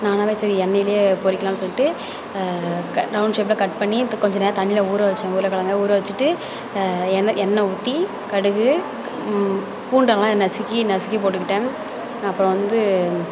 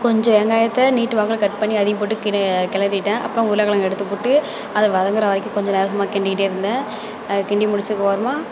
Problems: none marked